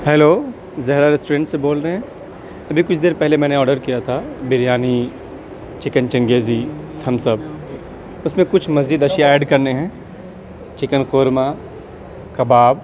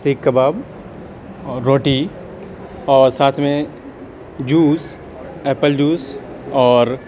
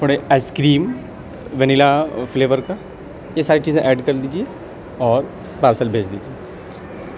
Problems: constant background noise, background conversations at intervals